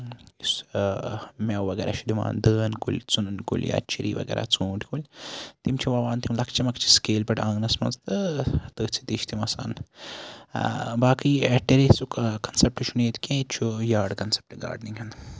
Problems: none marked